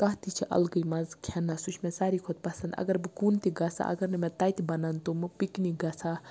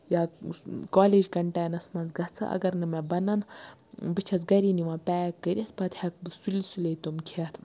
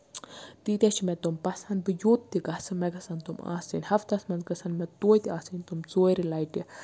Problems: constant background noise